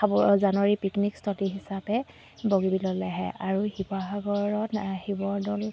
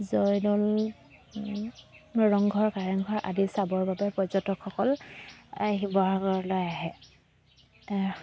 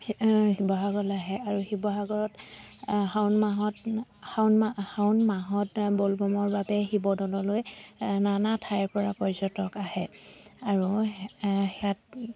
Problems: none marked